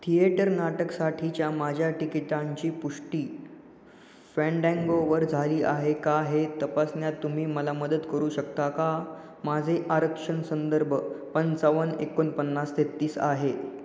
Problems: background sounds at intervals